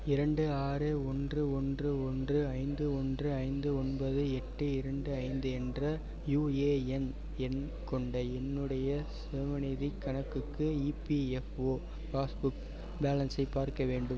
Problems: background conversations at intervals